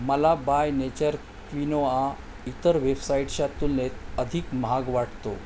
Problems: constant background noise